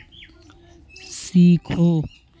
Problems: constant background noise